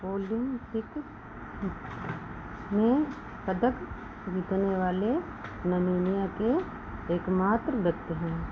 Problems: constant background noise